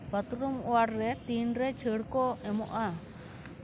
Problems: none marked